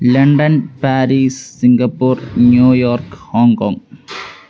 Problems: background sounds at intervals